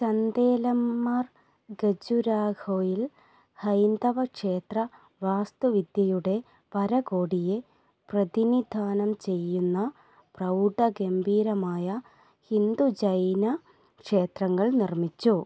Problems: none marked